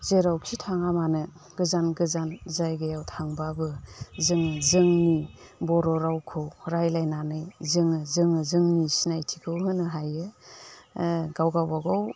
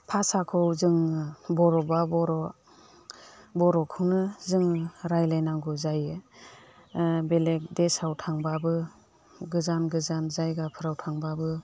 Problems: constant background noise